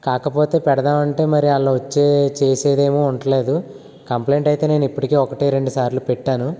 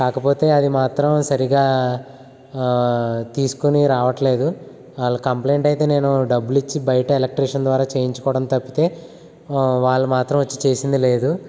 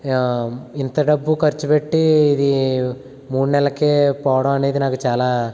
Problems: constant background noise